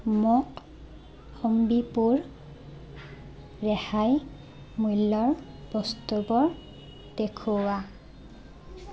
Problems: constant background noise